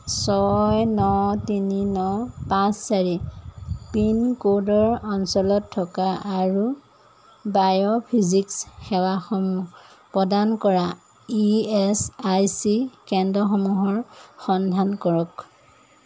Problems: none marked